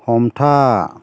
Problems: constant background noise